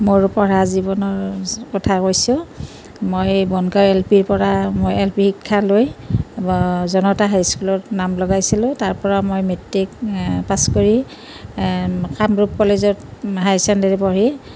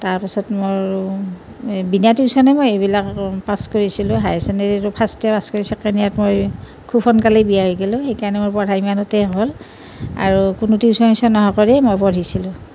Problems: none marked